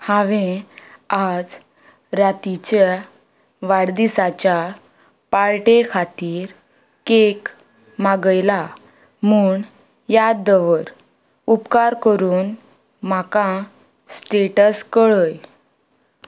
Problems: none marked